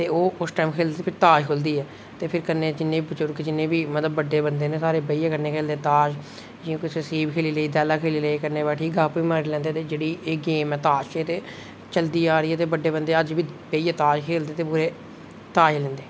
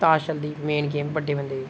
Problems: none marked